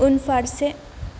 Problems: low volume